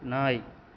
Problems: none marked